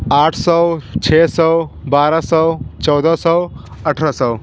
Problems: none marked